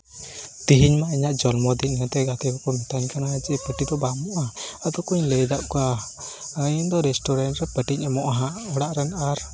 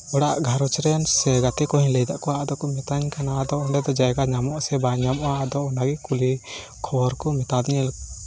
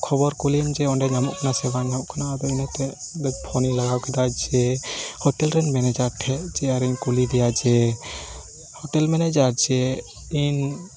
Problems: constant background noise, background conversations at intervals